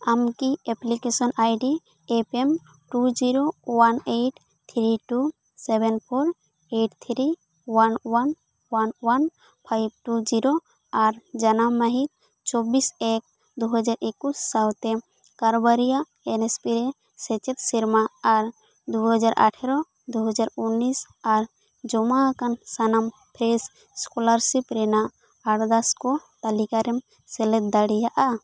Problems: none marked